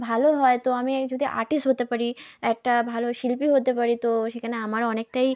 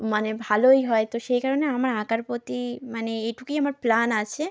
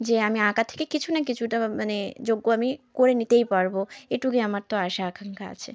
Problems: background conversations at intervals